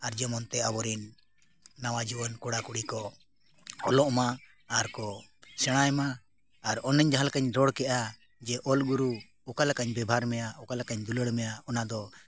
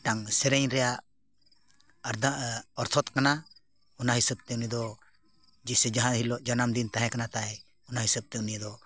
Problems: none marked